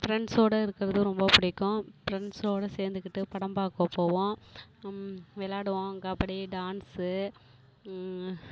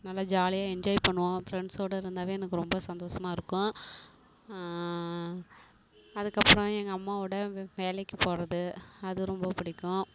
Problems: constant background noise